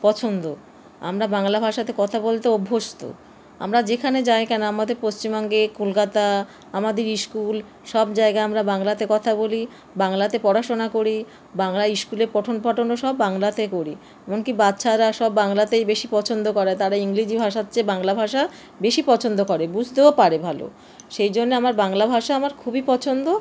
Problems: constant background noise